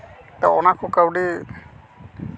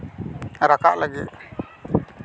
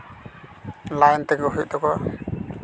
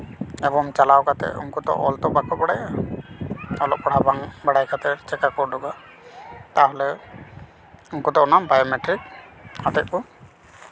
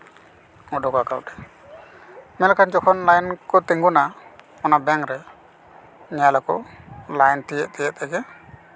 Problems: constant background noise, continuous background conversations